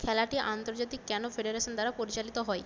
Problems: constant background noise